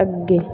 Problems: background sounds at intervals